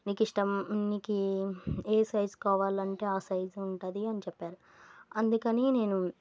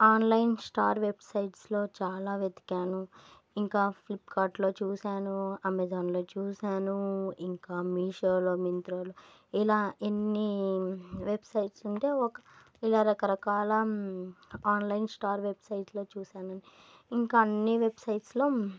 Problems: none marked